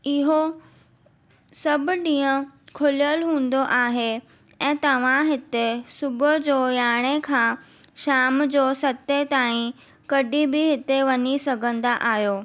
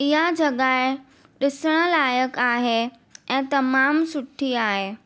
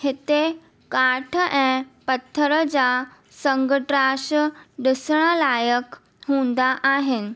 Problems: none marked